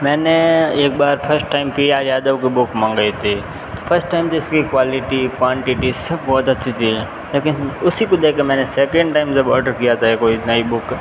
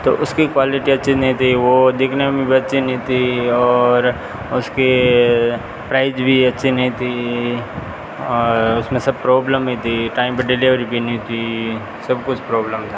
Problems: constant background noise